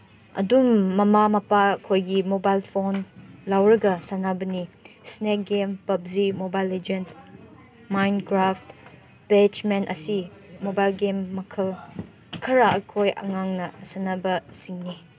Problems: none marked